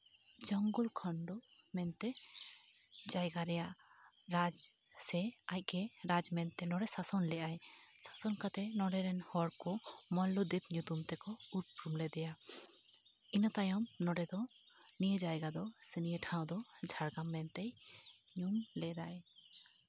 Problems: none marked